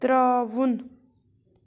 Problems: none marked